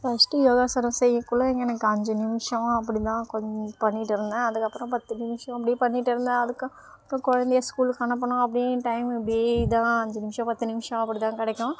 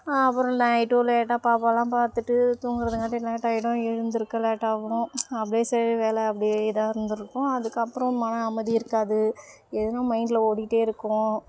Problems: constant background noise